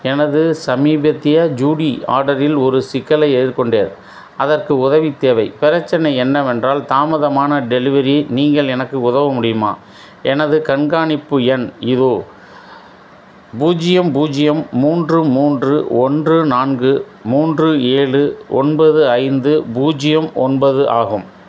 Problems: none marked